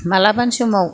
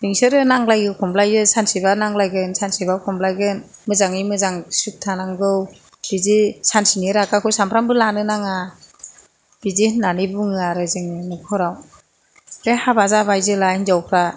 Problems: none marked